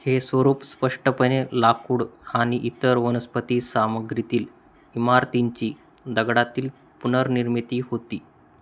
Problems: constant background noise